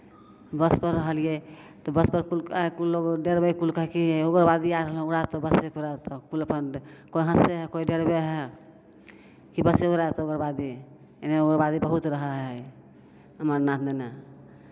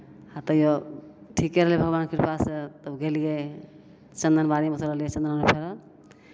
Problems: none marked